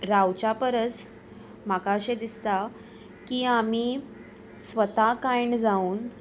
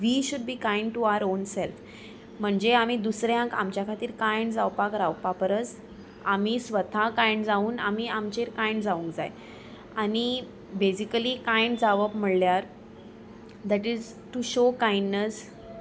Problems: background sounds at intervals